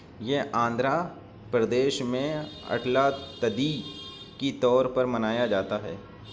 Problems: background sounds at intervals